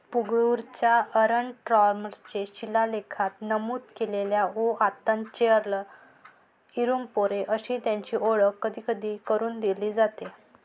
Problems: background sounds at intervals